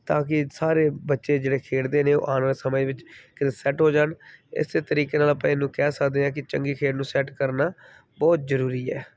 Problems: background sounds at intervals